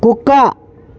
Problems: constant background noise